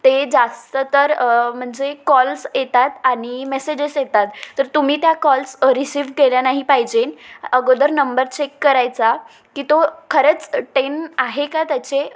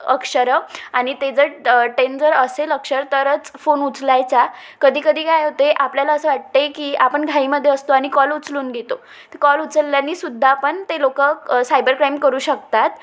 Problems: none marked